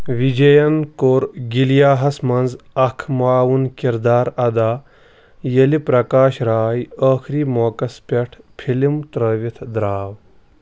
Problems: none marked